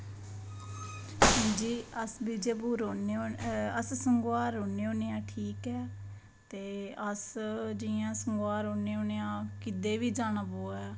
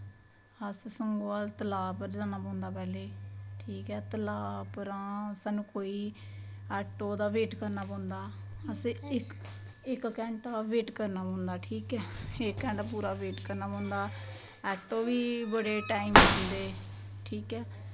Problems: background sounds at intervals